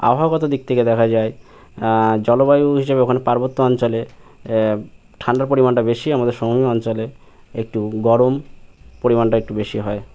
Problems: none marked